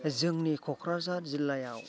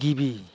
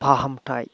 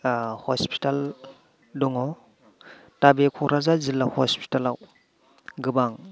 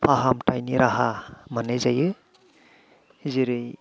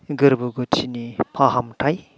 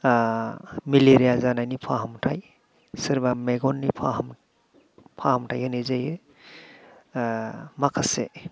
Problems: low volume